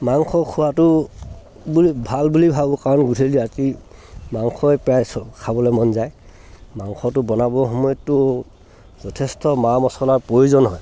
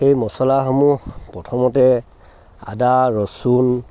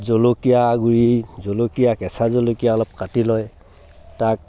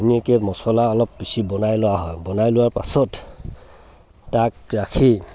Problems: background sounds at intervals